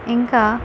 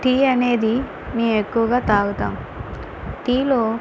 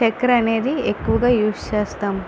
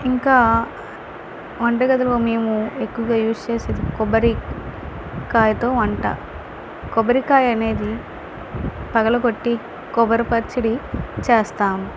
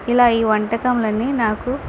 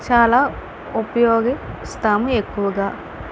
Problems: constant background noise